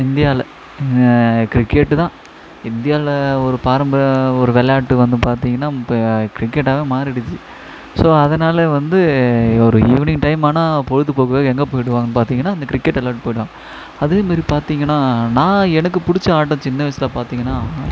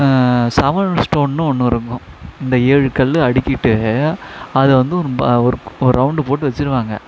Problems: echo